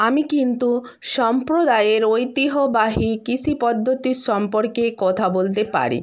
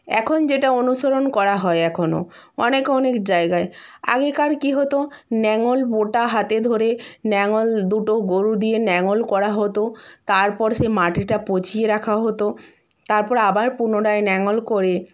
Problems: none marked